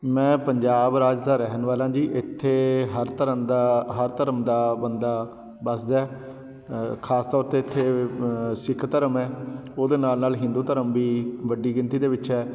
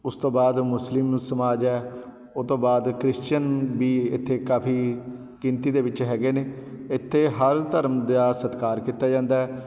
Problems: background sounds at intervals